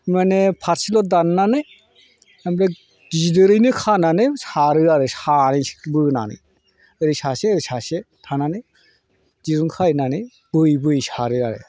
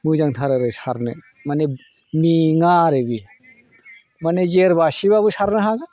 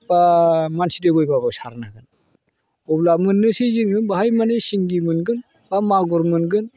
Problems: constant background noise